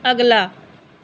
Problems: background sounds at intervals